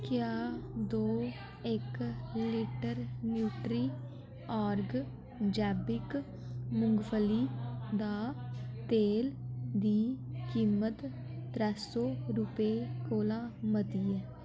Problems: background sounds at intervals, echo